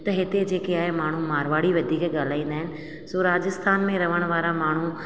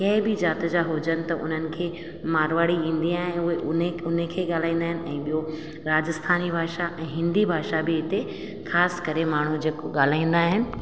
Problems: constant background noise, echo